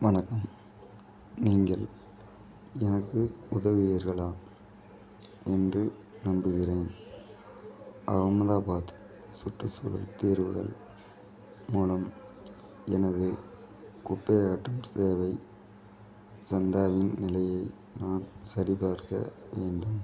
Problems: none marked